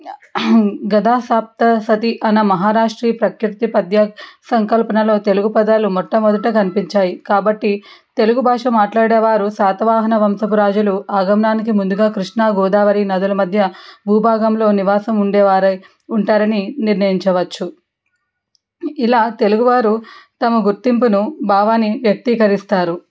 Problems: background sounds at intervals